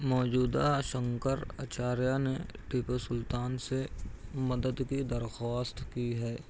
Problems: none marked